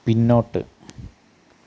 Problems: low volume